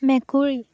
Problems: none marked